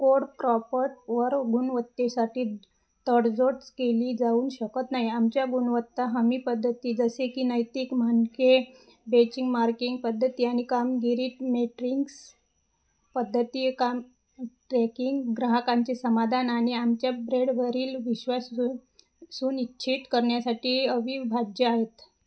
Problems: background sounds at intervals